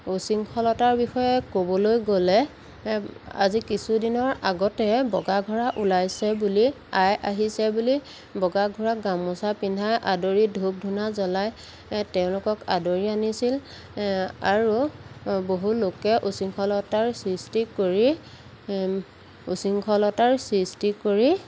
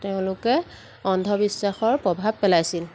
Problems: constant background noise